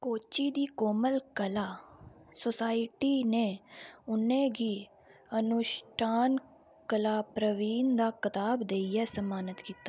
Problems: background sounds at intervals